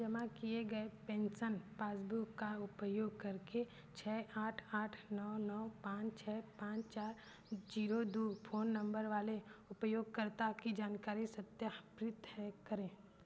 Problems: none marked